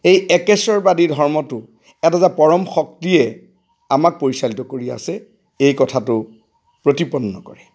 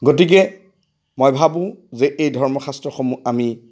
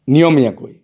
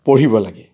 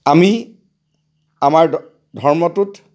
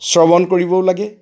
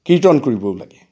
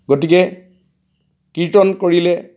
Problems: background sounds at intervals